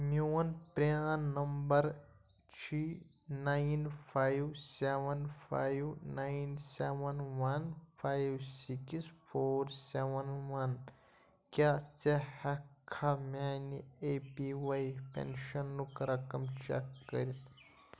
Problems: low volume